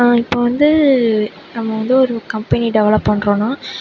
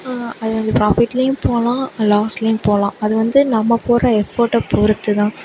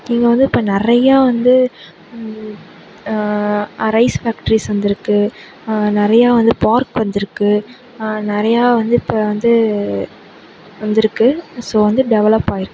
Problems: none marked